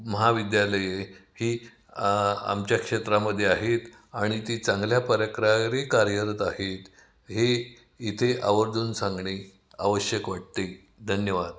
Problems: background sounds at intervals, echo